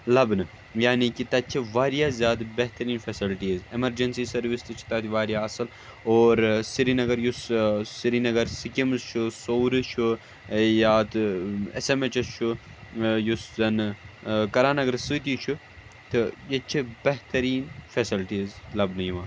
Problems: none marked